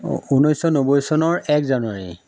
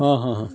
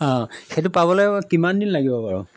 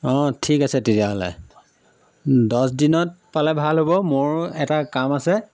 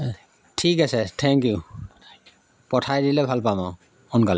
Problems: background sounds at intervals